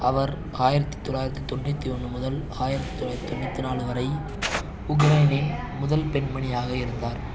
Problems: constant background noise